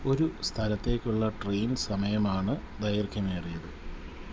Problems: constant background noise, low volume